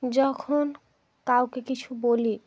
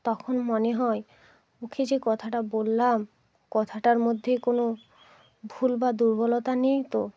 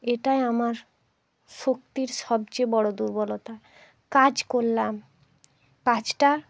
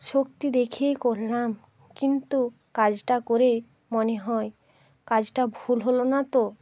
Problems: background sounds at intervals